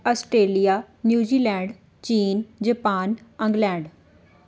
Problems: background sounds at intervals